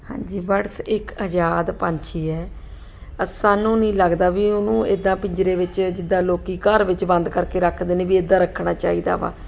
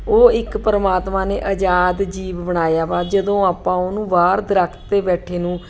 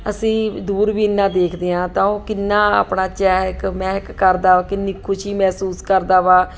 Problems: none marked